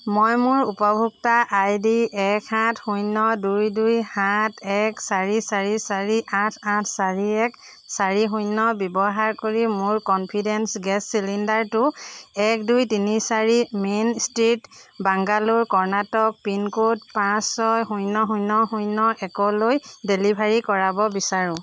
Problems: background sounds at intervals